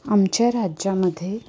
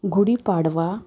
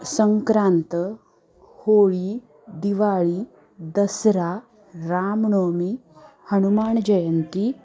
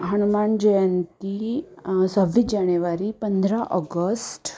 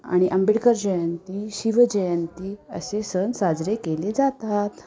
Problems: constant background noise, continuous background conversations